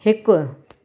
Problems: none marked